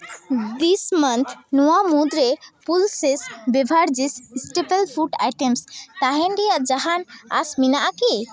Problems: none marked